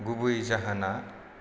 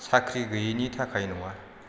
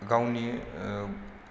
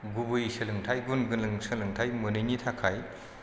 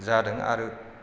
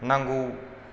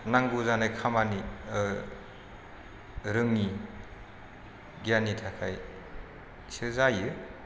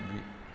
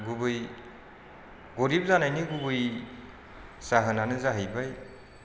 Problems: constant background noise